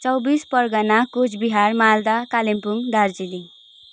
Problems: none marked